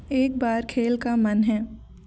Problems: constant background noise